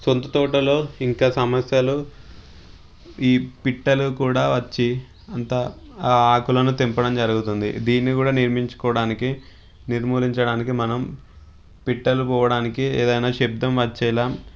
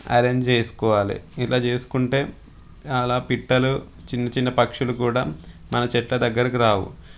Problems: background sounds at intervals